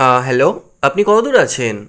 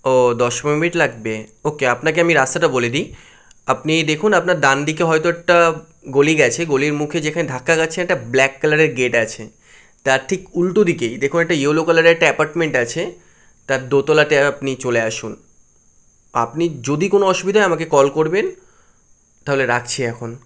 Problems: none marked